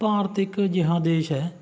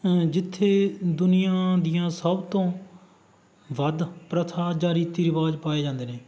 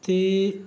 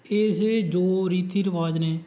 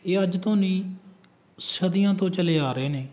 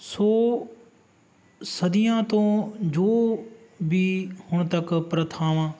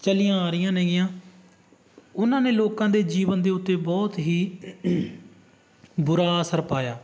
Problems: background sounds at intervals